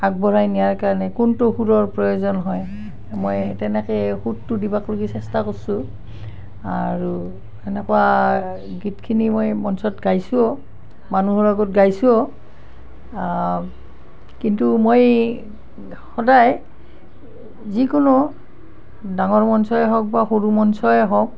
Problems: constant background noise